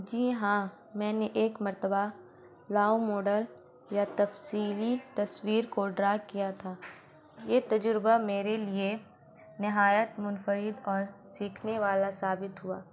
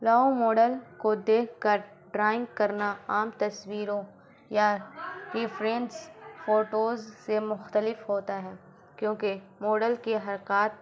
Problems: constant background noise